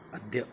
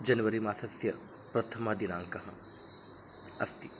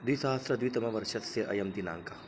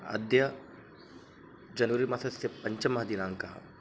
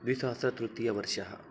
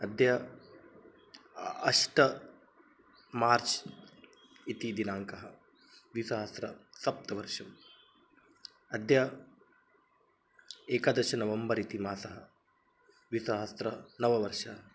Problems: constant background noise